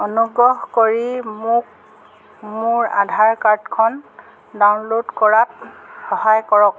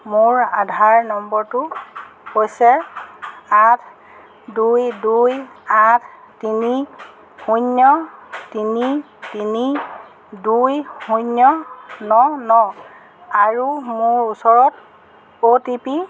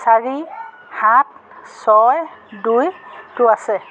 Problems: background sounds at intervals